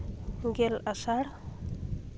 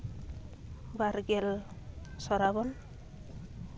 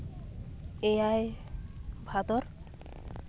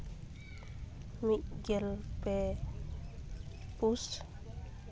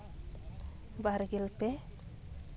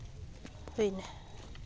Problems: constant background noise